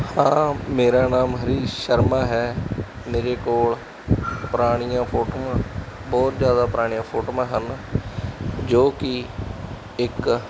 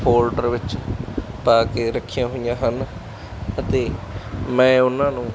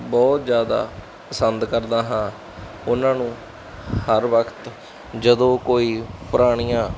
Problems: constant background noise